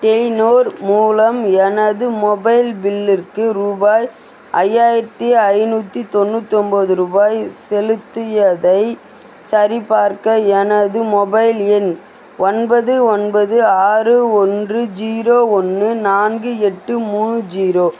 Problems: constant background noise